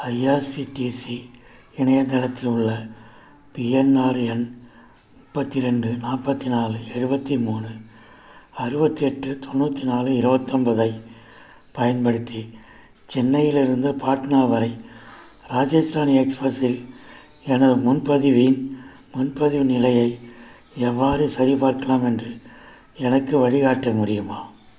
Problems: background sounds at intervals